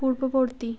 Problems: none marked